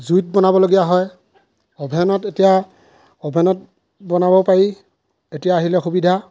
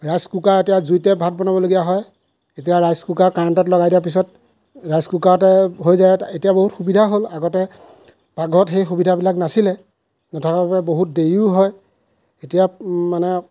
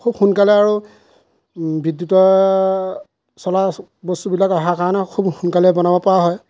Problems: background sounds at intervals